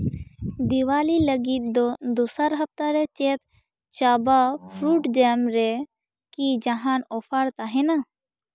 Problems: none marked